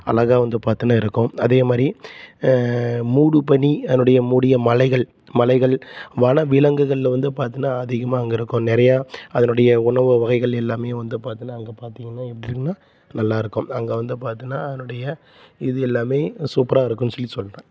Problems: constant background noise